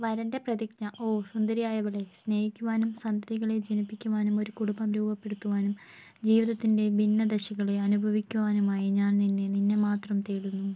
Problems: low volume